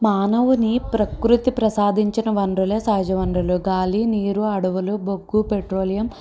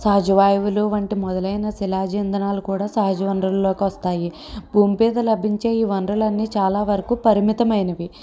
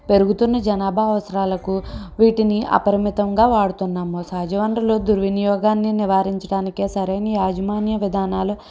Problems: none marked